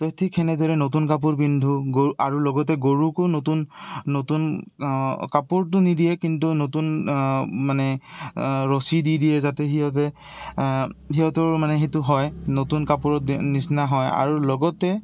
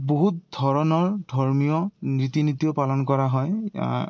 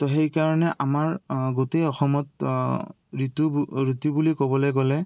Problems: constant background noise